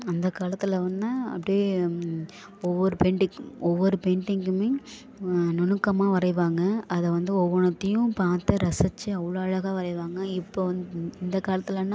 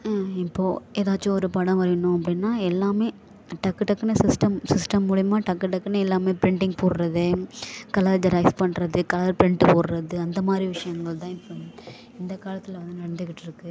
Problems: background sounds at intervals